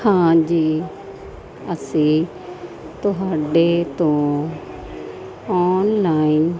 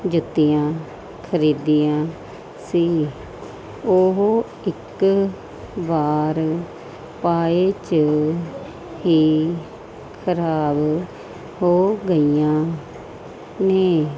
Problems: constant background noise